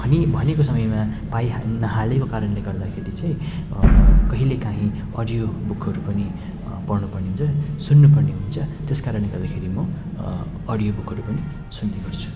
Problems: background sounds at intervals